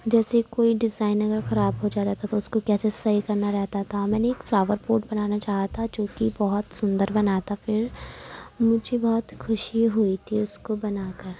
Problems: constant background noise, low volume